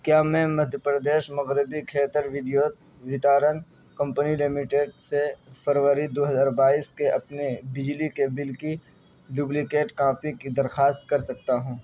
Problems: background sounds at intervals, background conversations at intervals, low volume